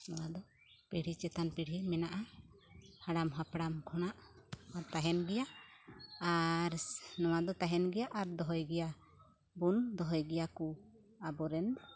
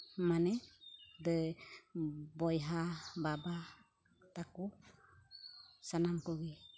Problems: none marked